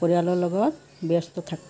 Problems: constant background noise